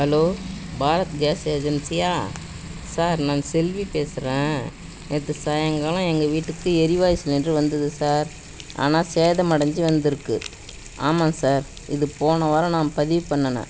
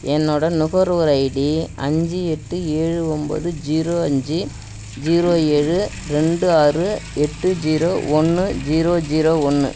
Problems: background sounds at intervals, background conversations at intervals